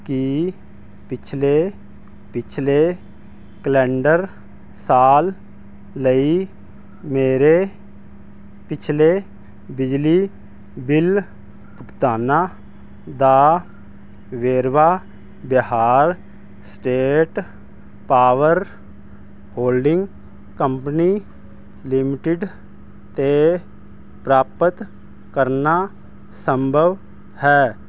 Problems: constant background noise